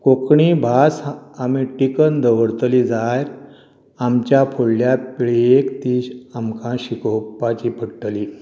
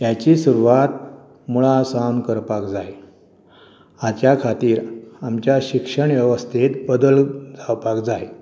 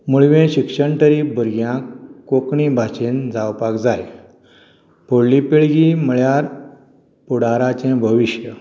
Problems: none marked